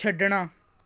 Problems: none marked